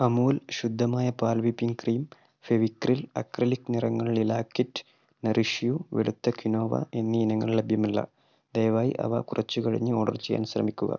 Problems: none marked